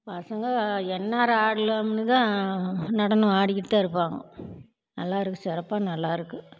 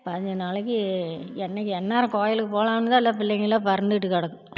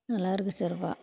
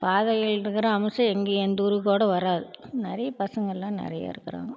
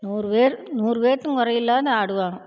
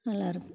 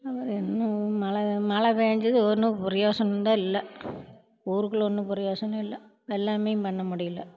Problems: none marked